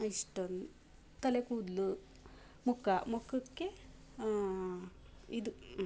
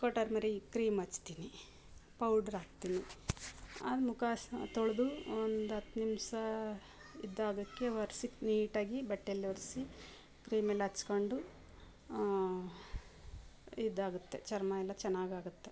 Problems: background sounds at intervals